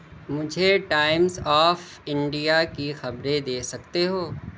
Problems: none marked